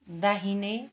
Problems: background conversations at intervals